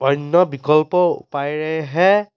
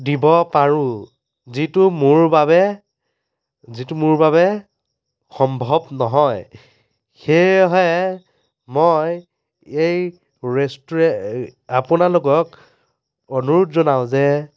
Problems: constant background noise